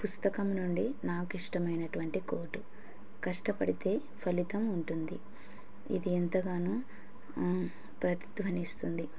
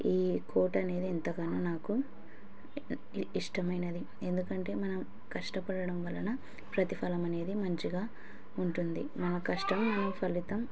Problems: background conversations at intervals